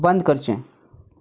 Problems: background conversations at intervals